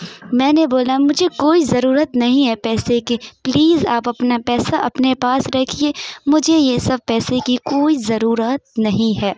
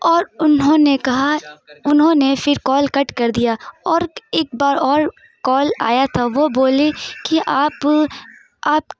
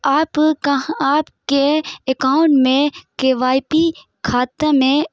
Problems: none marked